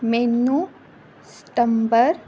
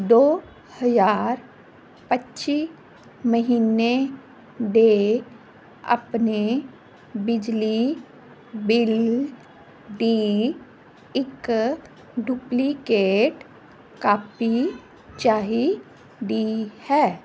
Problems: none marked